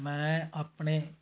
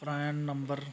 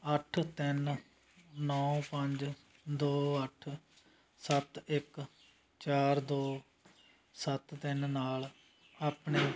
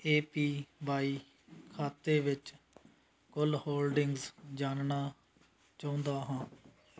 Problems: background sounds at intervals